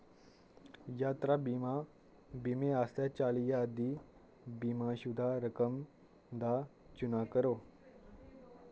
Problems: constant background noise